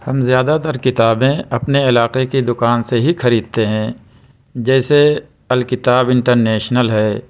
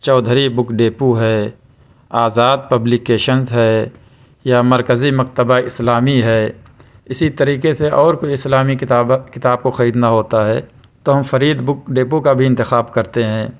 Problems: none marked